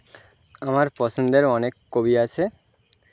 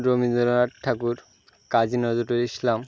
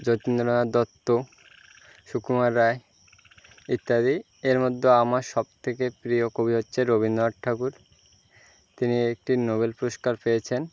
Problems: none marked